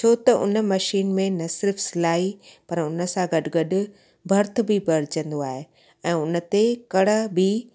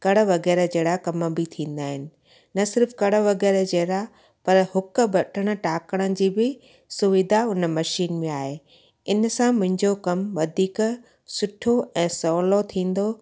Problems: constant background noise, echo